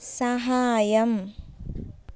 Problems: none marked